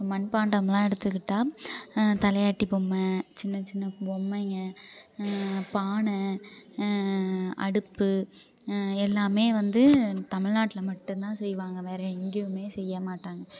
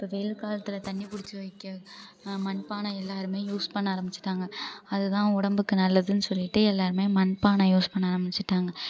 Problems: low volume